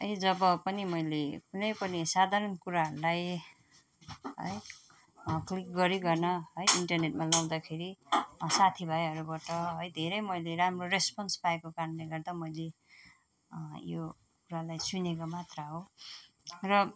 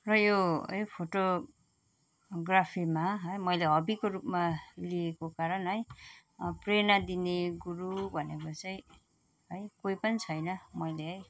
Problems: none marked